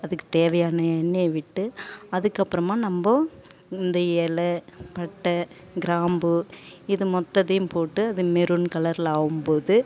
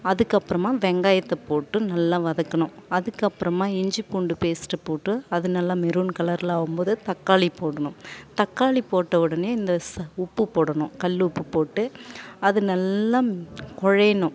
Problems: background sounds at intervals